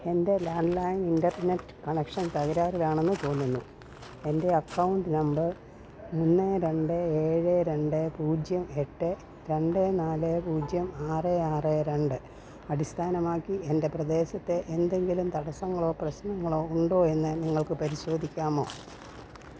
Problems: background sounds at intervals